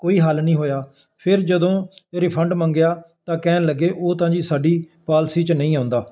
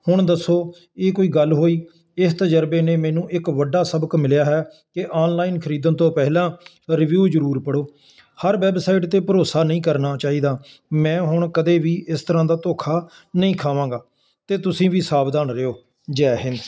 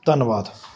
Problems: constant background noise